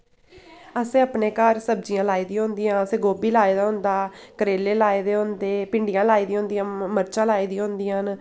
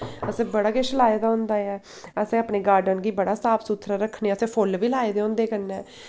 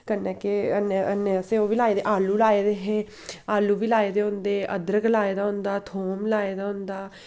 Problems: constant background noise